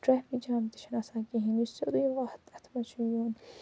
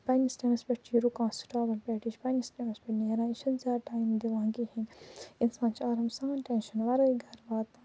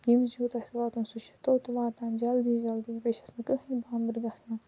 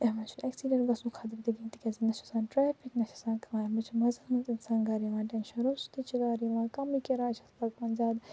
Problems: low volume